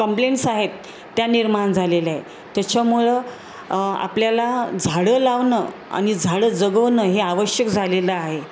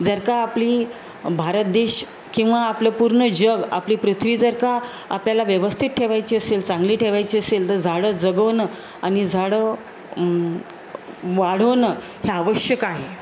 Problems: constant background noise